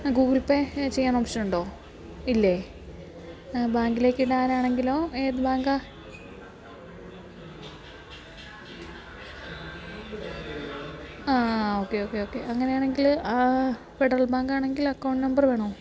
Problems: background sounds at intervals, background conversations at intervals